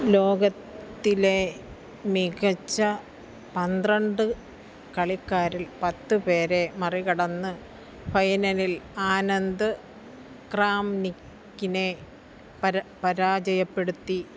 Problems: low volume